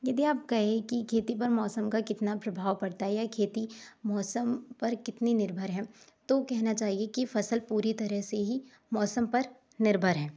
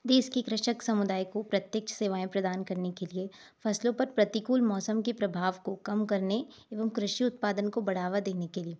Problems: none marked